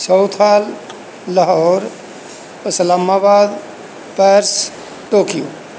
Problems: background sounds at intervals